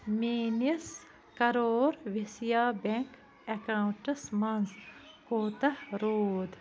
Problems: constant background noise